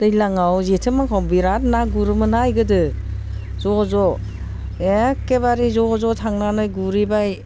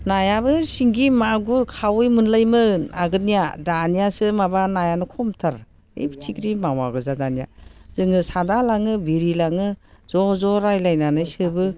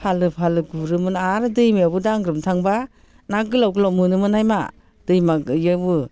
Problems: constant background noise